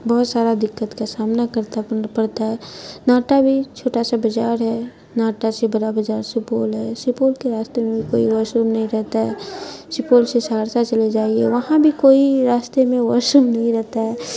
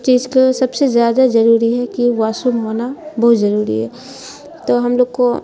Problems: constant background noise